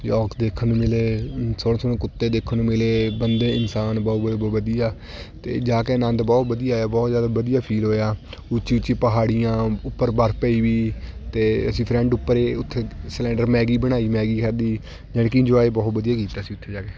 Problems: constant background noise, continuous background conversations